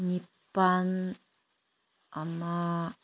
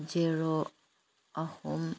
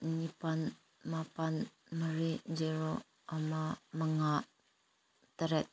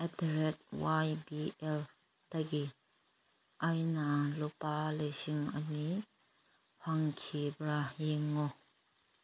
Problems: background sounds at intervals